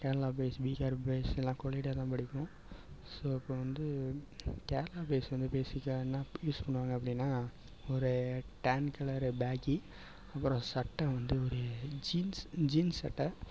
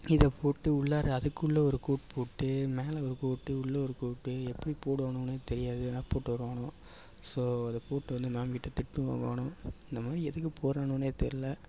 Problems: background sounds at intervals, low volume